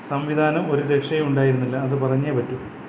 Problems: constant background noise